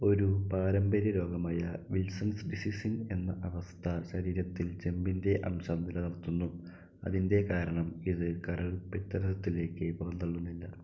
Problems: low volume